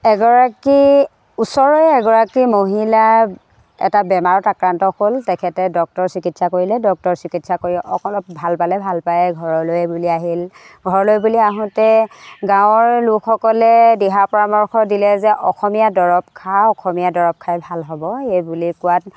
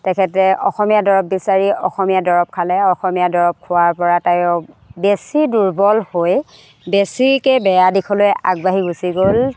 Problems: constant background noise